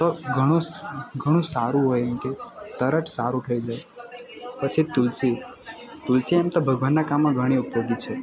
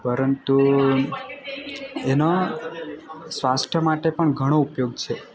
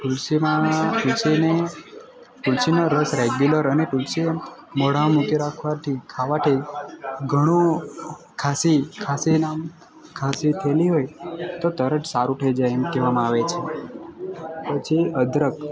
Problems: constant background noise